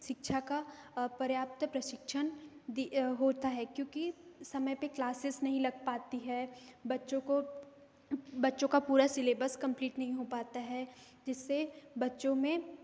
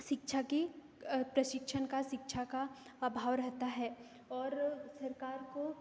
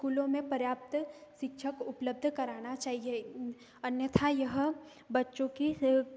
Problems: background sounds at intervals